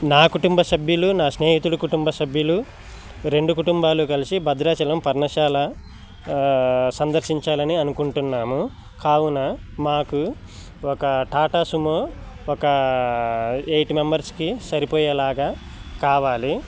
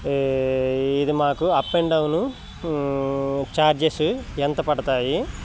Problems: constant background noise